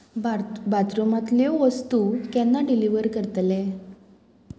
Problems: constant background noise